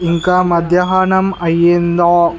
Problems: background conversations at intervals